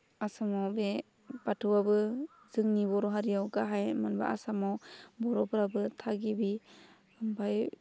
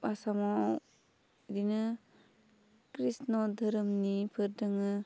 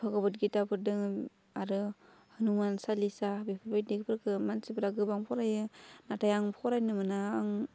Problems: low volume